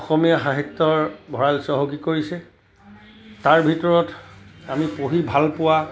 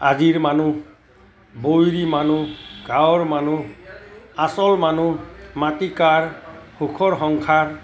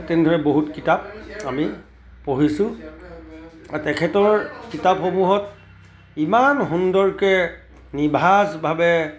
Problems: constant background noise, continuous background conversations